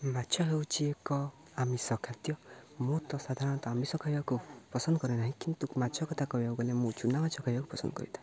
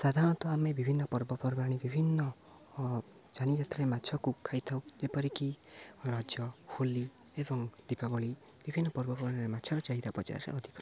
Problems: none marked